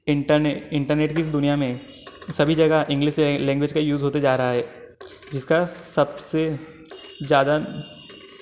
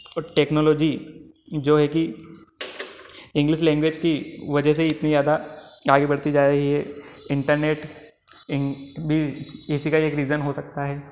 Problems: background conversations at intervals